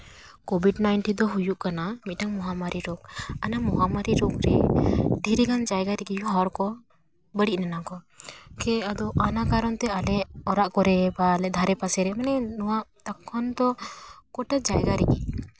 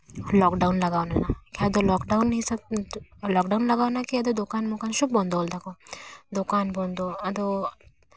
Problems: background sounds at intervals